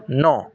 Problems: background sounds at intervals